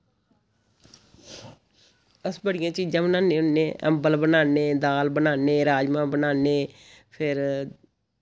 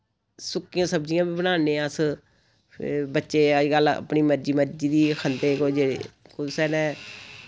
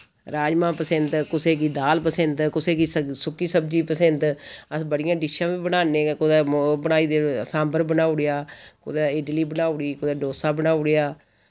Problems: constant background noise